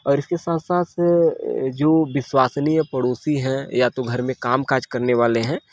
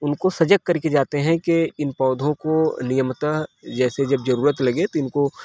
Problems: constant background noise